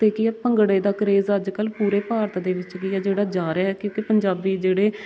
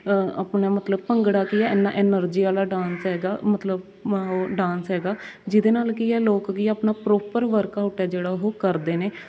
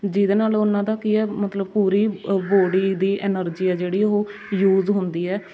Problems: constant background noise